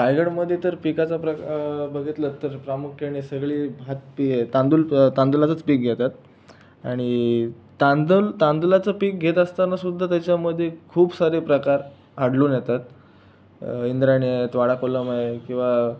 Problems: none marked